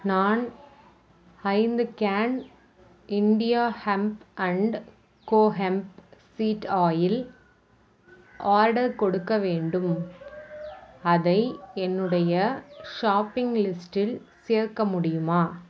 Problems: constant background noise